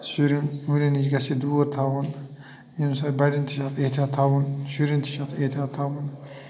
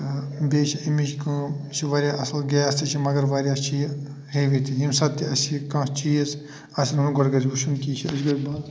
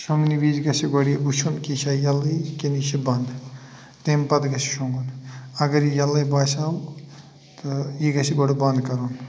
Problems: none marked